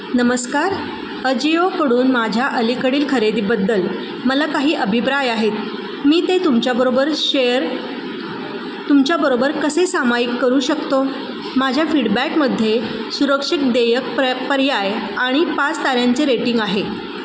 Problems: constant background noise, background conversations at intervals